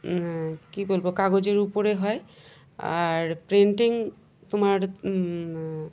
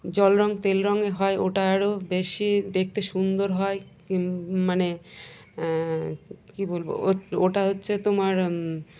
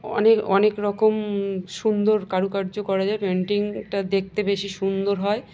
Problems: none marked